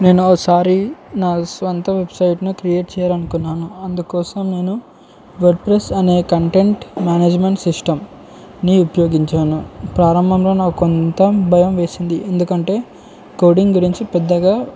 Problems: none marked